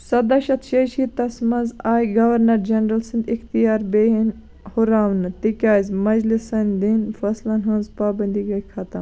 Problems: background sounds at intervals